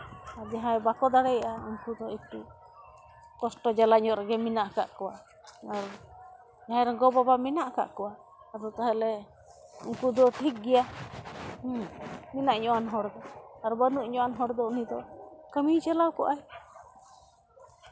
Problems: constant background noise